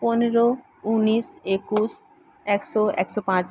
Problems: constant background noise